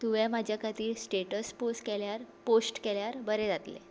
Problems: constant background noise